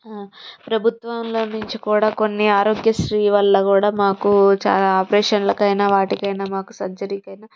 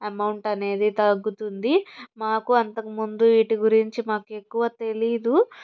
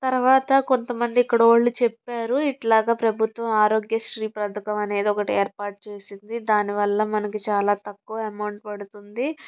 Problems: none marked